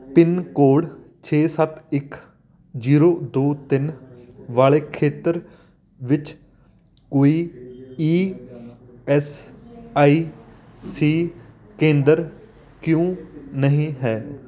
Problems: continuous background conversations